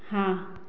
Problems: none marked